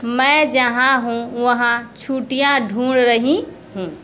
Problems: constant background noise